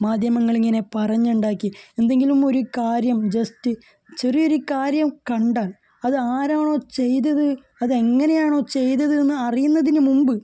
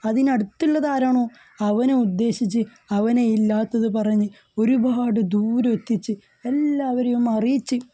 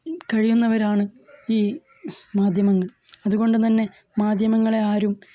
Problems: none marked